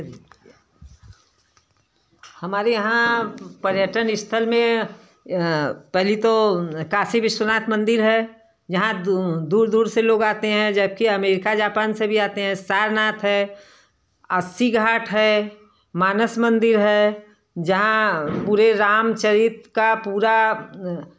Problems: none marked